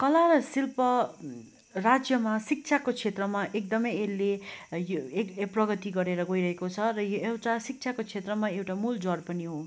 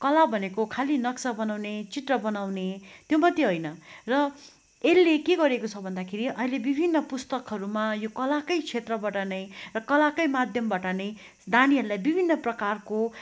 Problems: constant background noise